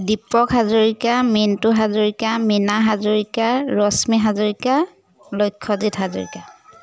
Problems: background sounds at intervals